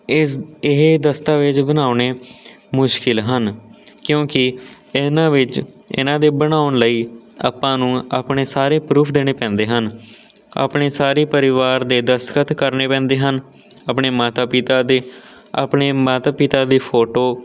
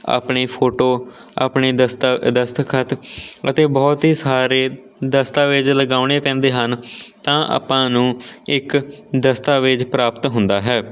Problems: background sounds at intervals